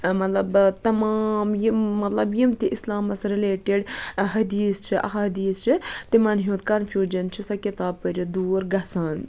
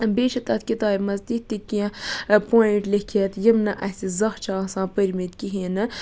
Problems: none marked